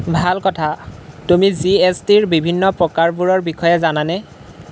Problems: none marked